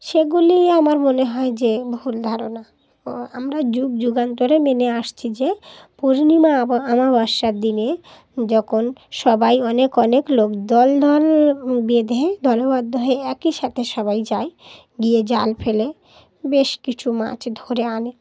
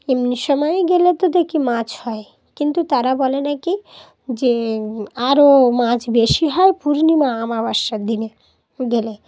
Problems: background sounds at intervals